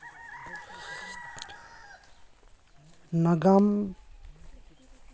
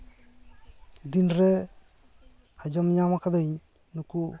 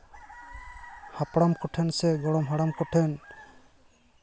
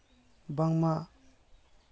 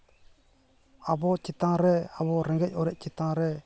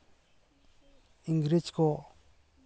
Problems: background sounds at intervals, continuous background conversations